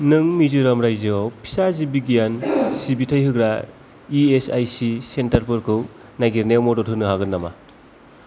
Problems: constant background noise, background conversations at intervals